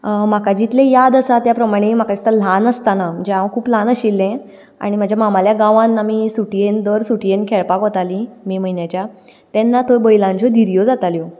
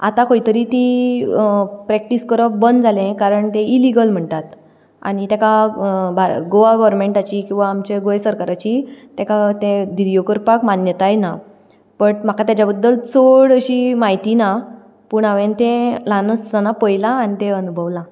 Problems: background sounds at intervals